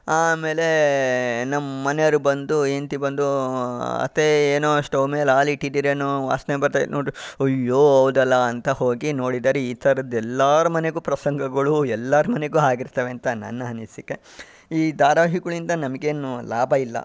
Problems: background sounds at intervals